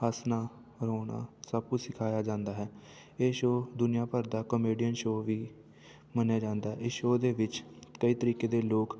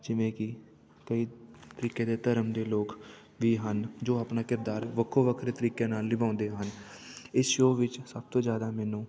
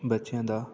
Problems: none marked